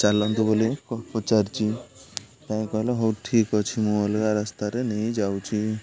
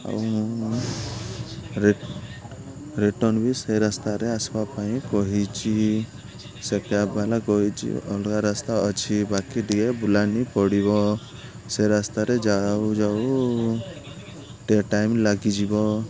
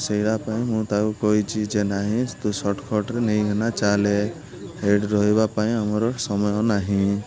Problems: constant background noise, continuous background conversations